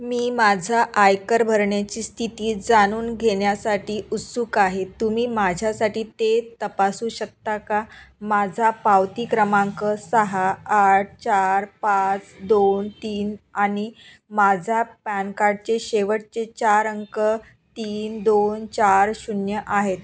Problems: constant background noise, background conversations at intervals